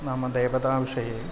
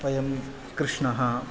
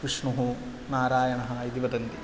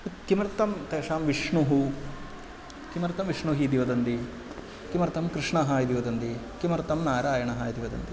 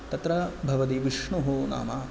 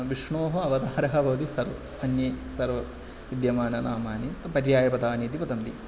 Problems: constant background noise